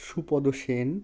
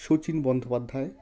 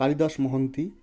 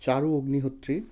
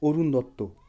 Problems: constant background noise